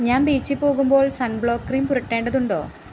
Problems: constant background noise